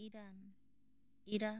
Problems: low volume